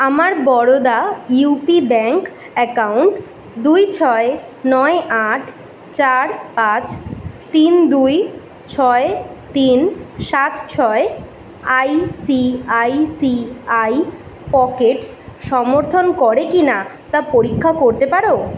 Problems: none marked